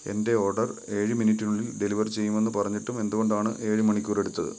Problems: background sounds at intervals